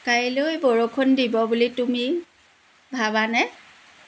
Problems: none marked